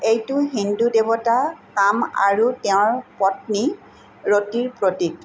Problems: constant background noise